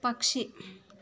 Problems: low volume